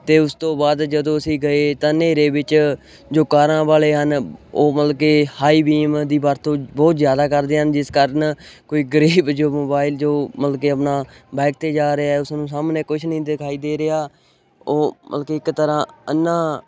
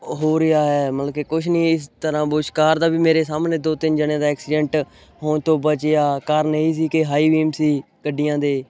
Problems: none marked